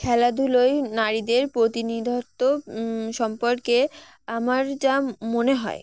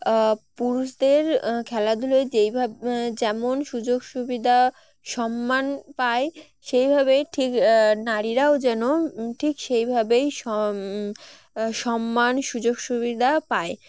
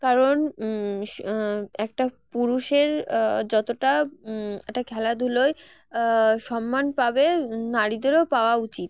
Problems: background sounds at intervals